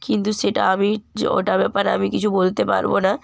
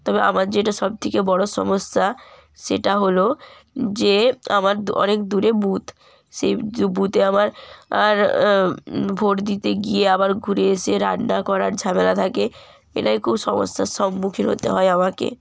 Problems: background sounds at intervals